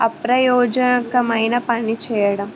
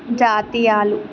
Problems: none marked